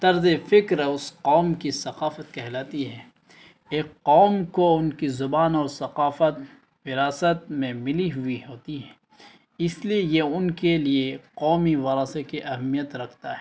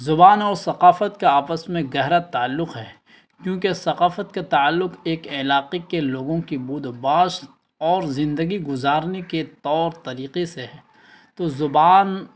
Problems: constant background noise